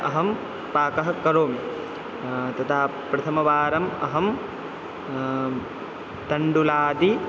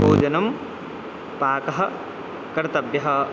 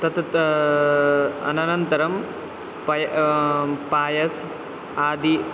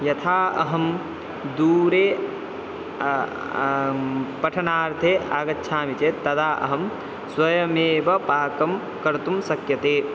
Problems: constant background noise